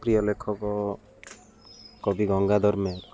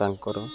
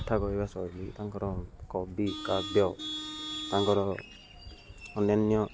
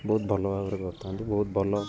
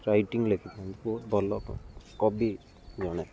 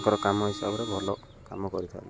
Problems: constant background noise